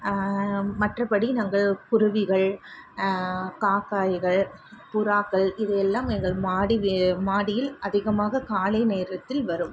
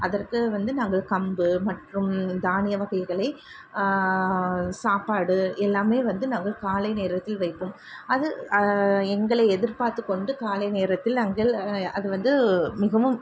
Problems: constant background noise